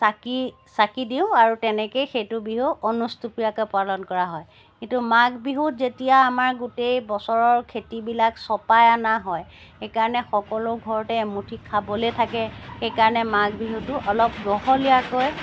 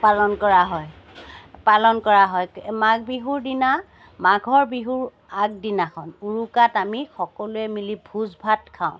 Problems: background sounds at intervals